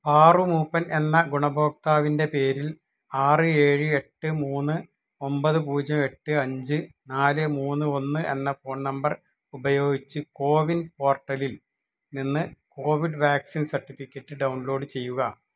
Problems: none marked